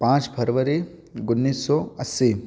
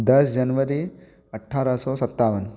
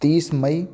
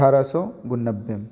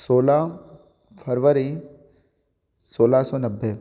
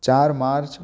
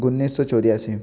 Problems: background sounds at intervals